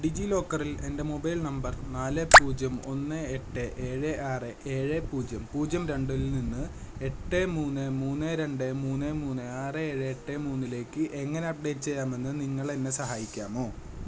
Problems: constant background noise, low volume